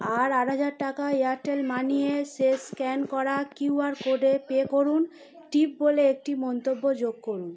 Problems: constant background noise